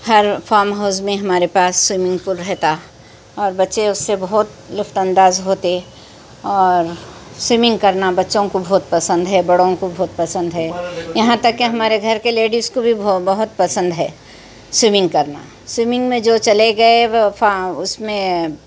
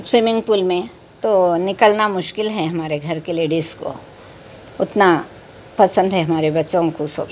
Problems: constant background noise, background conversations at intervals